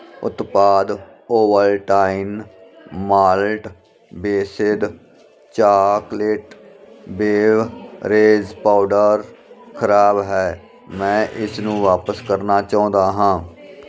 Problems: none marked